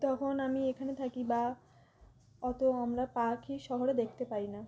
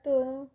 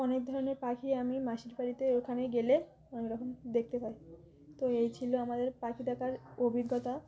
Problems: none marked